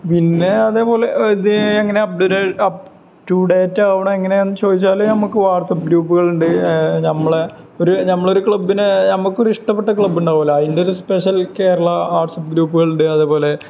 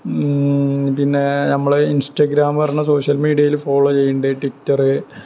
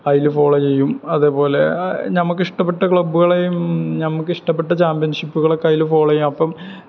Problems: background sounds at intervals